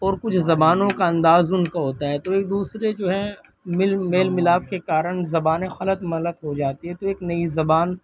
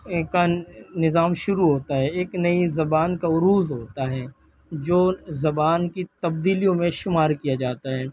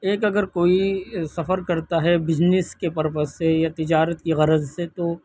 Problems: background sounds at intervals, background conversations at intervals